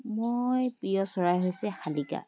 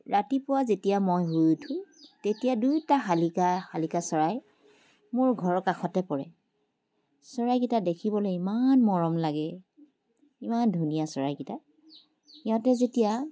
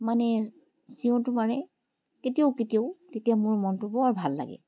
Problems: background sounds at intervals